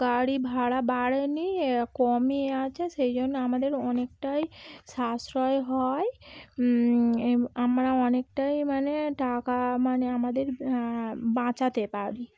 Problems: background sounds at intervals